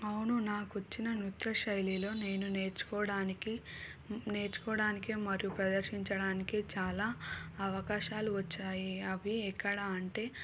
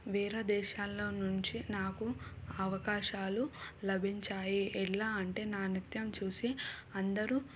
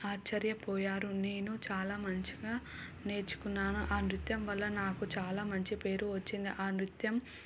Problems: none marked